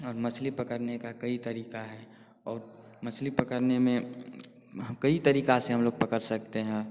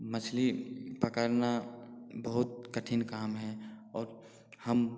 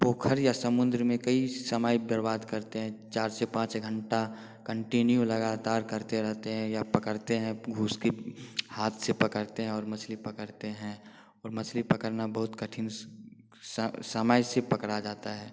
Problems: constant background noise